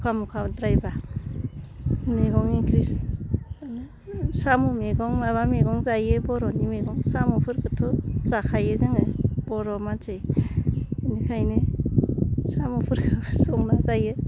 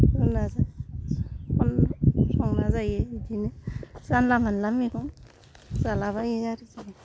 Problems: low volume